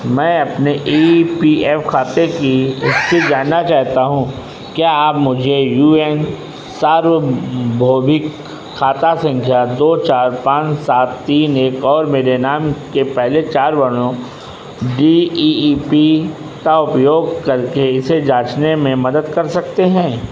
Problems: constant background noise